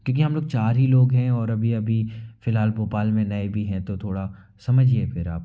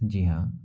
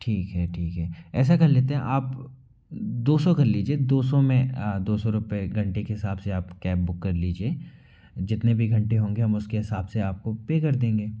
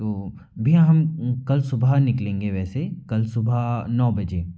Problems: constant background noise